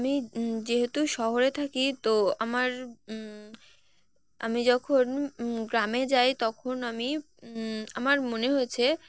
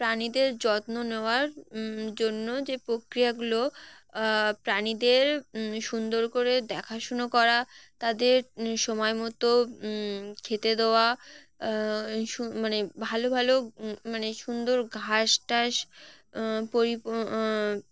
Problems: constant background noise